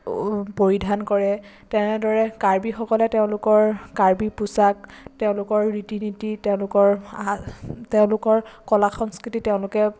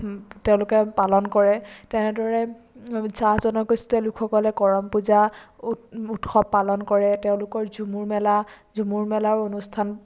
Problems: none marked